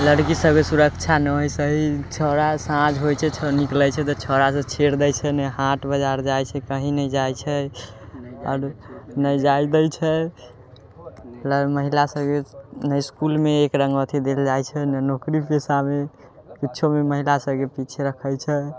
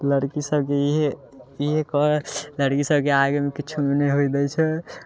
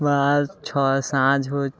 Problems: background sounds at intervals, background conversations at intervals